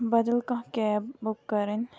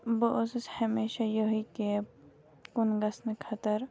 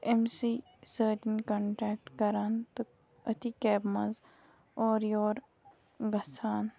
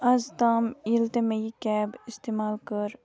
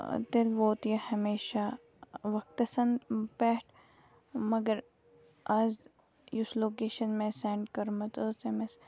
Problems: background sounds at intervals